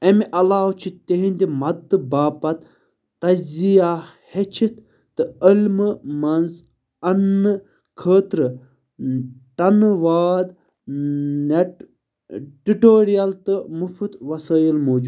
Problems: constant background noise